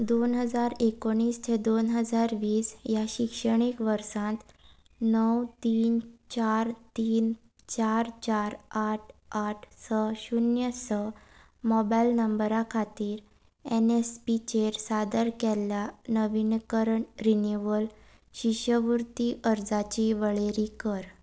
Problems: background sounds at intervals